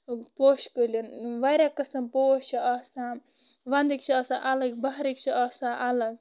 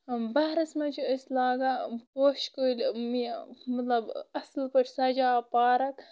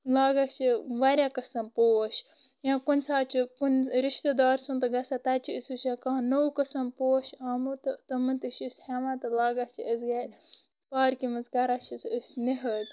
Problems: constant background noise